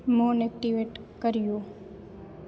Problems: constant background noise